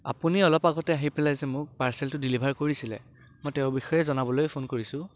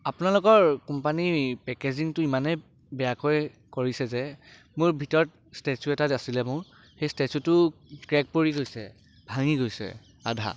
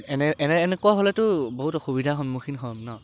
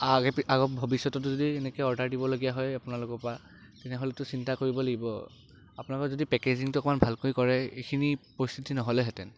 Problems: constant background noise